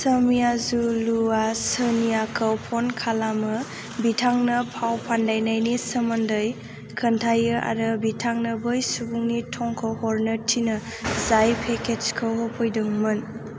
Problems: constant background noise